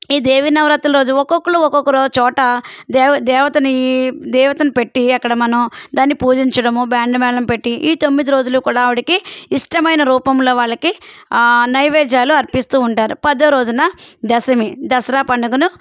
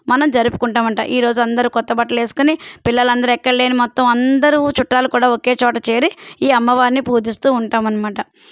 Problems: none marked